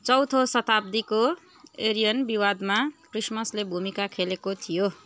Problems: constant background noise, continuous background conversations